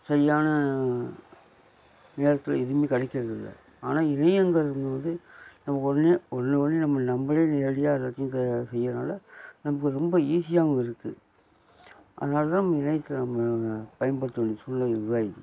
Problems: constant background noise